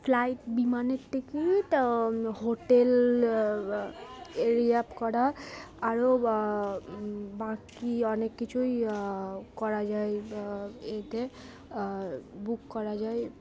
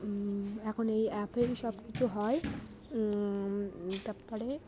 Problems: constant background noise, continuous background conversations